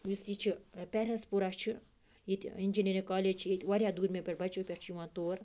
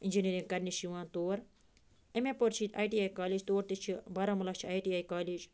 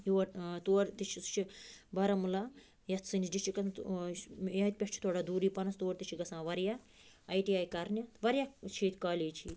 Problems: none marked